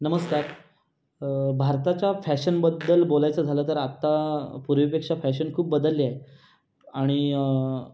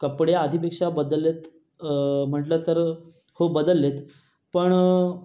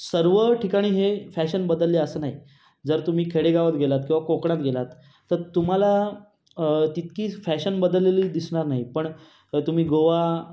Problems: none marked